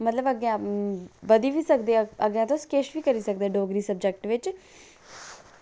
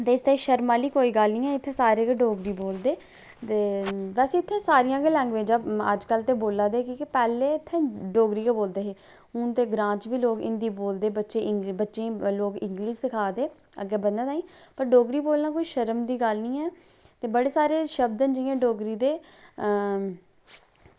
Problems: low volume